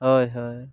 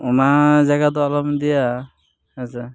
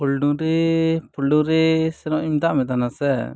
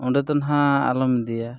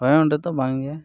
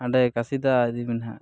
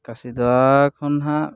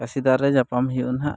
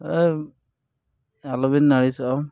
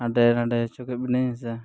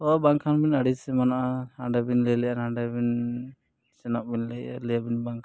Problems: background sounds at intervals